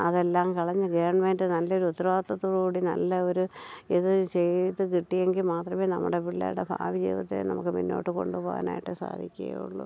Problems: low volume